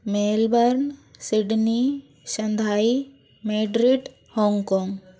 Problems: constant background noise